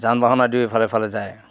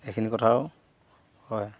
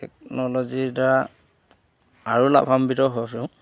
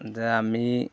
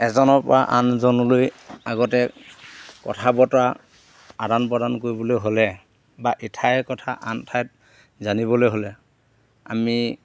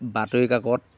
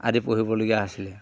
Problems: none marked